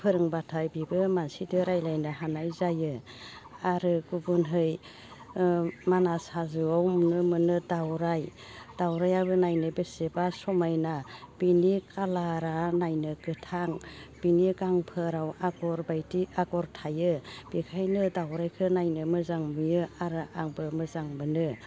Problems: constant background noise